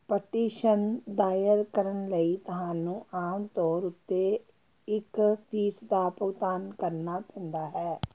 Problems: none marked